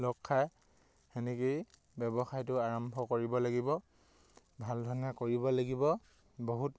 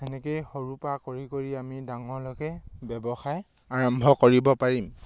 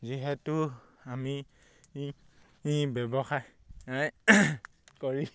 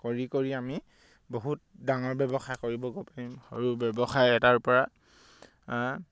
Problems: none marked